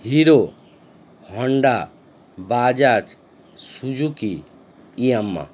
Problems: constant background noise